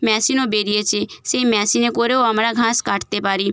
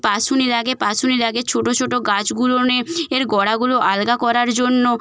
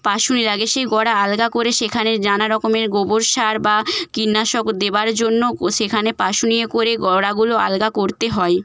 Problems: none marked